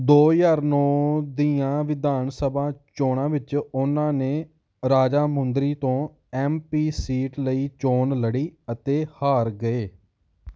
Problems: background sounds at intervals